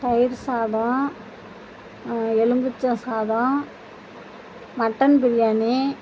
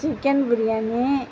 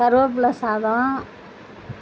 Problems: constant background noise